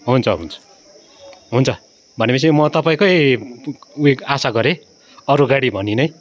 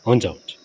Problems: none marked